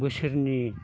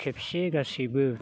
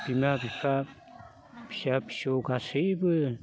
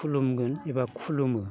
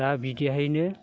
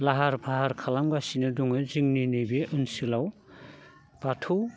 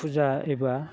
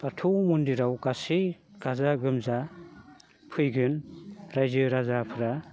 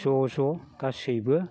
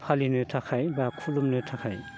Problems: constant background noise